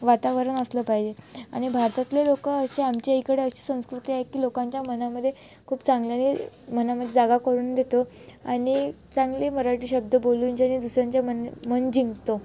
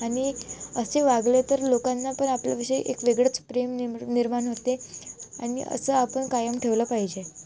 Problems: none marked